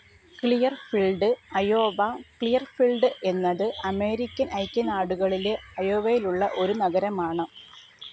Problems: background sounds at intervals, low volume